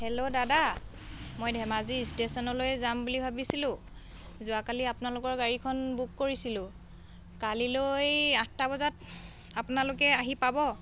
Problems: background conversations at intervals